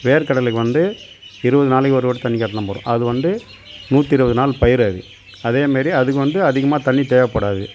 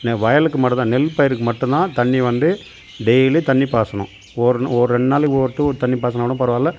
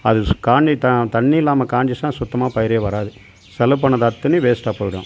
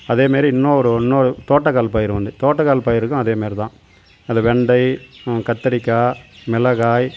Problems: background sounds at intervals